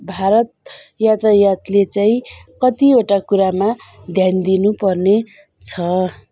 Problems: background sounds at intervals